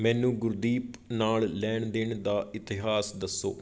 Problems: none marked